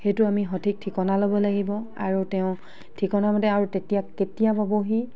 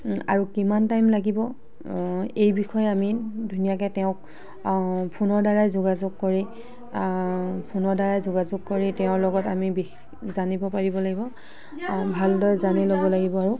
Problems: background sounds at intervals, background conversations at intervals